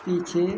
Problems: none marked